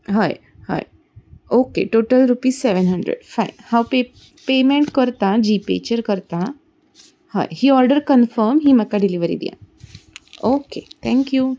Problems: none marked